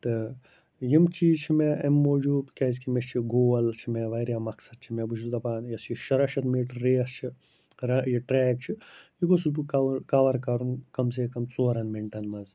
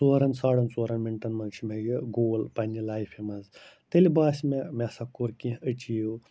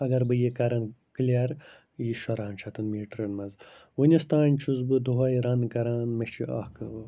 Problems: constant background noise